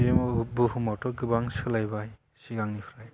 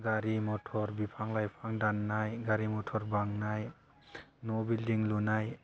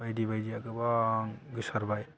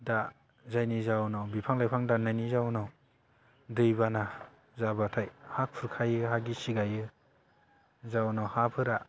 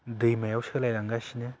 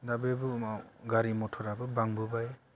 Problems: none marked